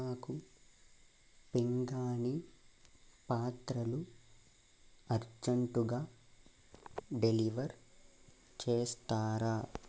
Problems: constant background noise